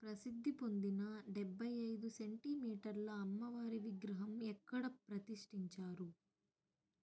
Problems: low volume